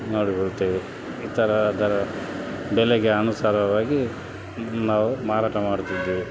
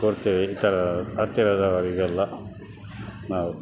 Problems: none marked